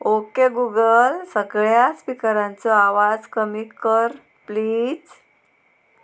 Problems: constant background noise